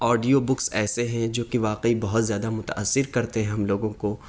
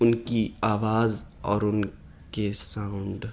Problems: none marked